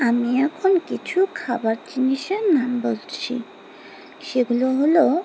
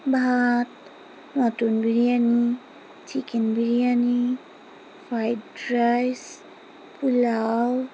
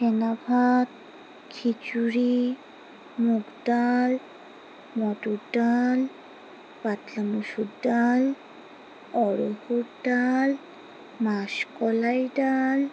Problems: none marked